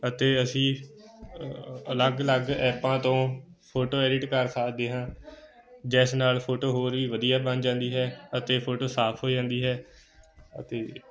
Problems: continuous background conversations